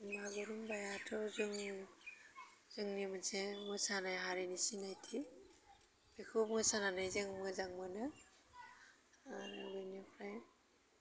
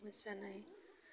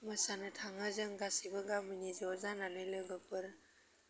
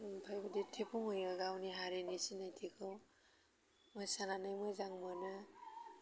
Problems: low volume